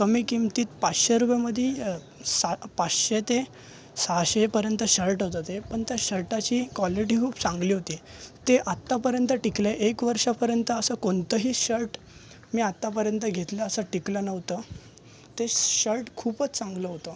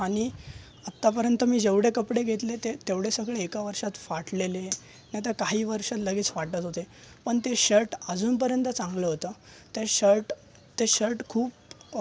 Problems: constant background noise, continuous background conversations